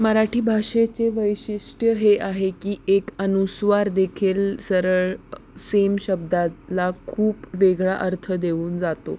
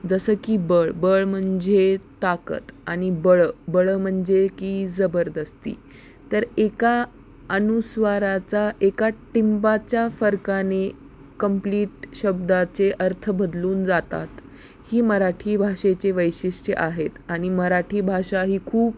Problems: constant background noise, background conversations at intervals